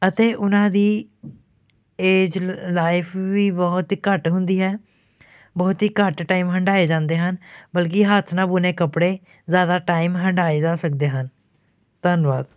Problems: background sounds at intervals